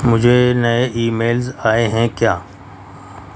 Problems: constant background noise